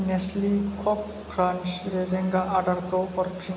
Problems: low volume